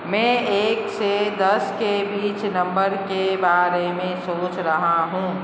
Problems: none marked